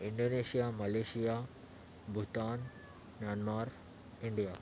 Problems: constant background noise, background conversations at intervals